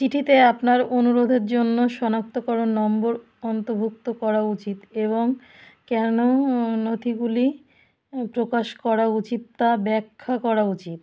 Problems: background sounds at intervals